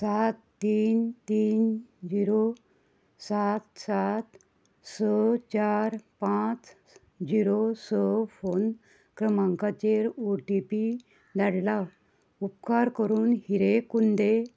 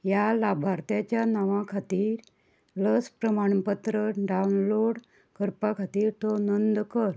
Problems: none marked